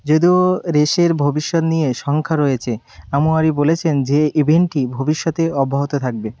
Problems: none marked